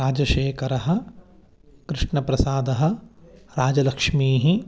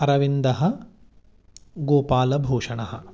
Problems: background conversations at intervals